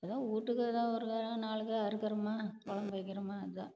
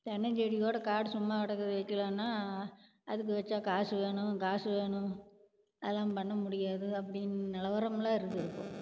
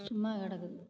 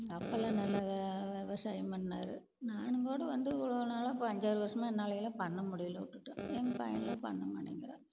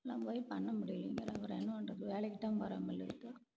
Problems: constant background noise